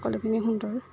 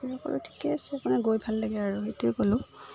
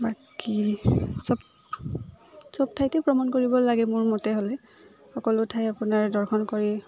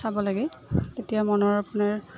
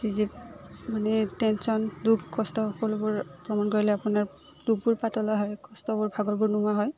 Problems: none marked